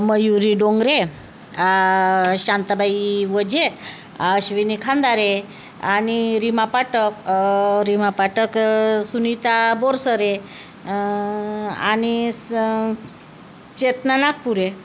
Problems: none marked